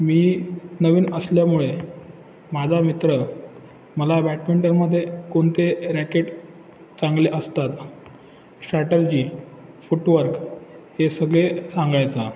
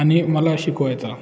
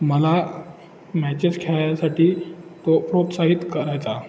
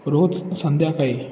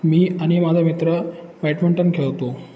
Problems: constant background noise, echo